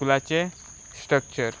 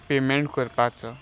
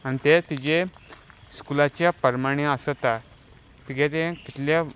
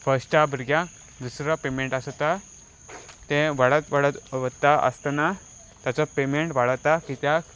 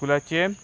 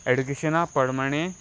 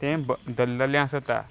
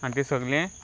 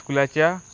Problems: none marked